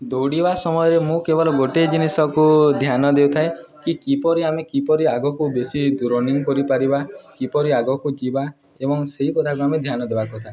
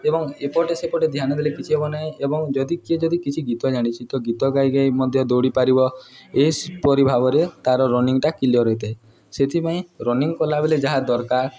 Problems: continuous background conversations